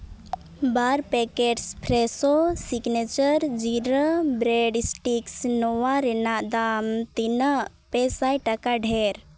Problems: none marked